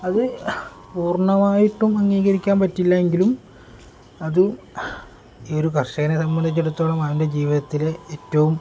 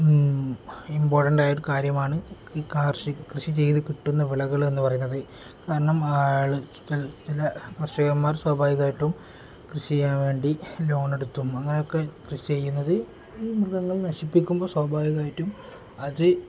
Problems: background sounds at intervals